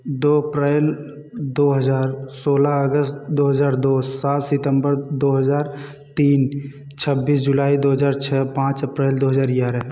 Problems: none marked